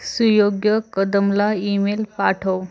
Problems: background sounds at intervals, background conversations at intervals